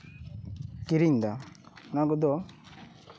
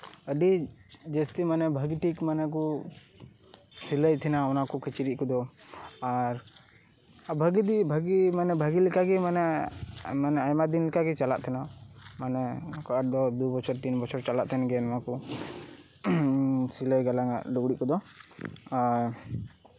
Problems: constant background noise